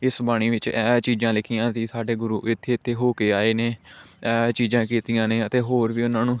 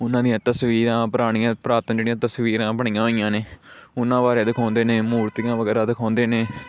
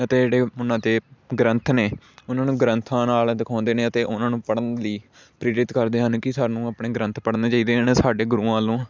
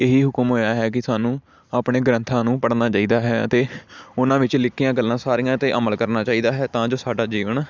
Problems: constant background noise